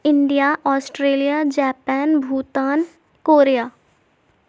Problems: none marked